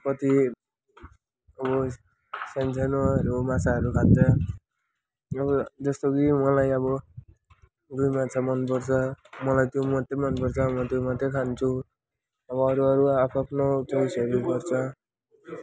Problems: constant background noise, continuous background conversations